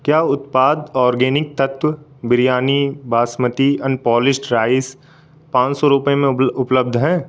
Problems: constant background noise